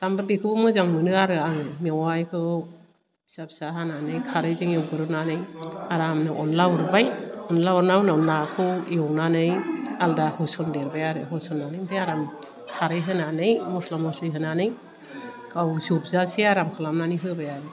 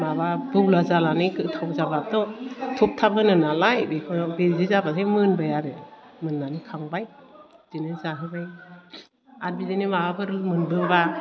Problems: low volume